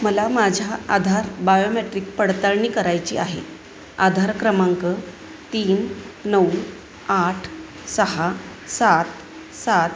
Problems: constant background noise, background conversations at intervals